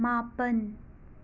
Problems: none marked